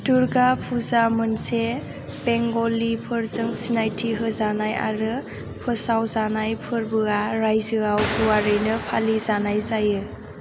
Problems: none marked